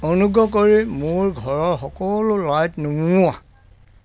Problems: none marked